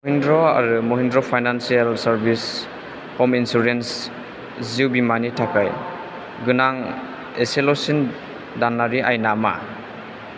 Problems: constant background noise